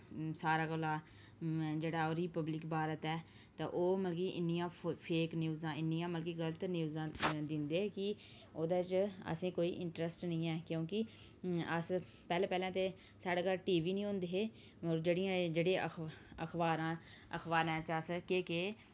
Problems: background sounds at intervals